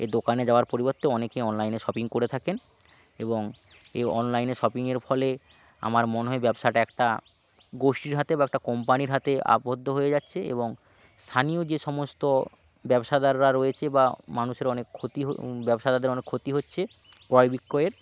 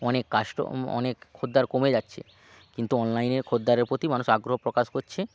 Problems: background sounds at intervals